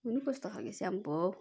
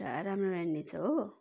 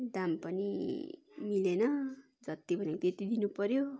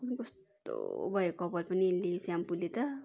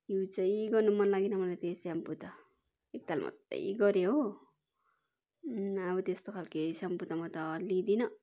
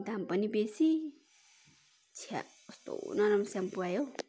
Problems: continuous background conversations